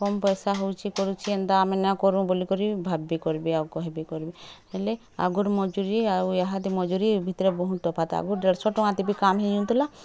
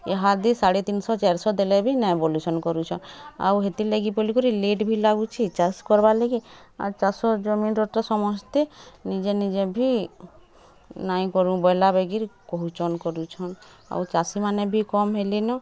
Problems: none marked